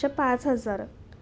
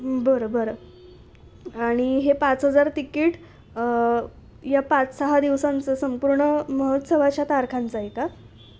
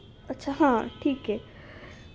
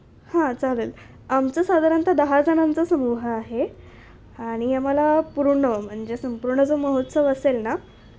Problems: background sounds at intervals